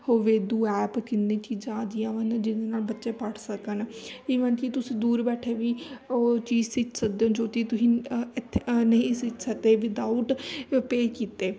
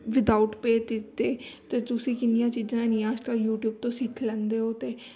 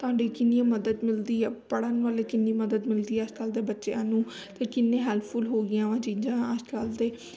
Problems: none marked